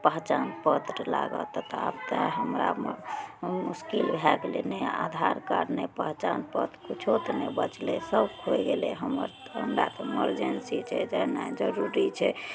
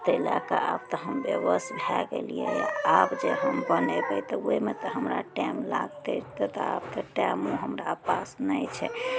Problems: none marked